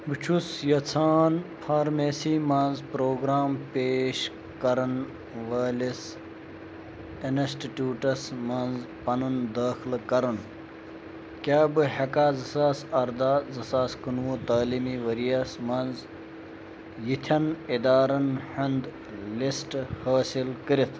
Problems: constant background noise